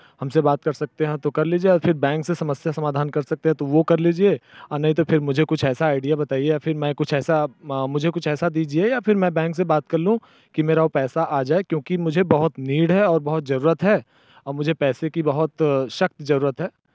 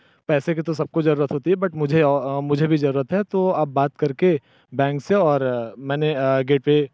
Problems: background sounds at intervals